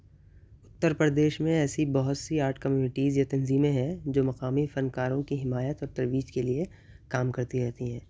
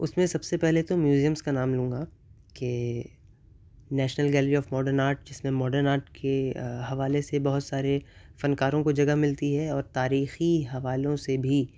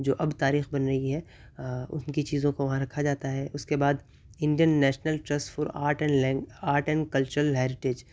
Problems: none marked